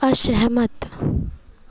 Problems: none marked